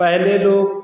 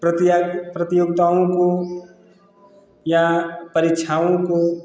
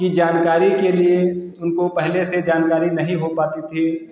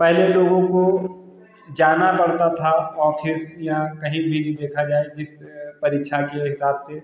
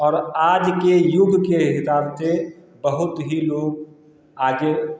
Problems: constant background noise